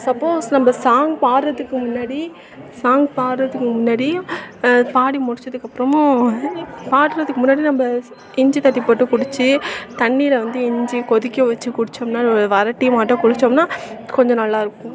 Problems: constant background noise, continuous background conversations